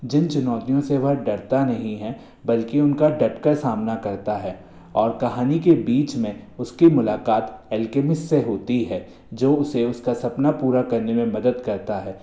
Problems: constant background noise, echo